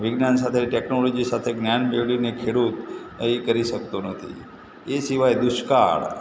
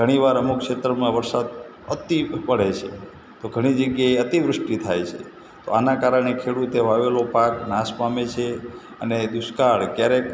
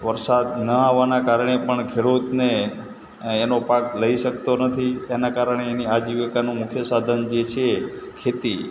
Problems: constant background noise